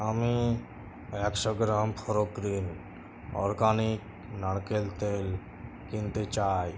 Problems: constant background noise